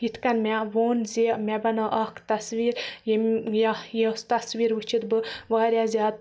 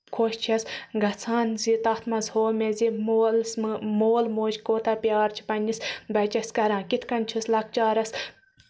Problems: background sounds at intervals